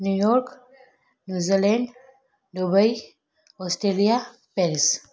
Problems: echo